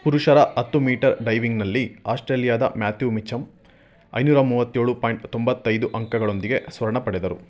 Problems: background conversations at intervals